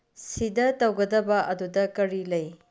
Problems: low volume